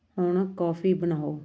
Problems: constant background noise